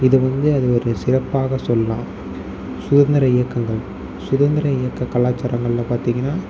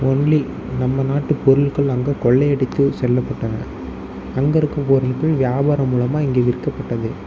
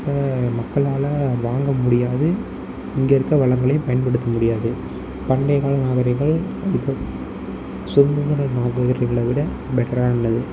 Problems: constant background noise, low volume